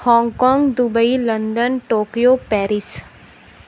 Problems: none marked